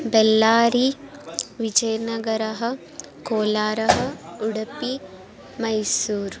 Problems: continuous background conversations